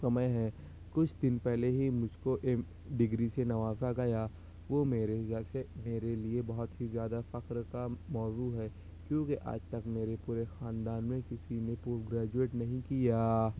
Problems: constant background noise